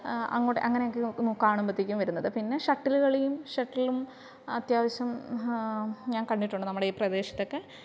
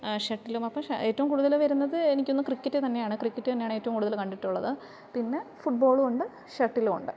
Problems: low volume